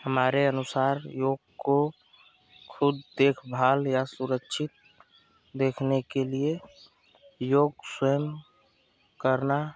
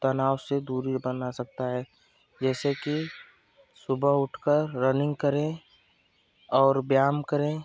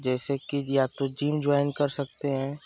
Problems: constant background noise